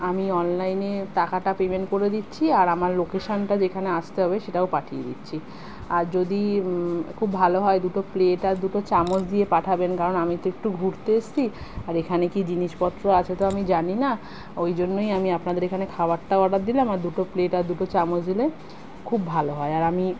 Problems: constant background noise